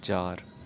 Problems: constant background noise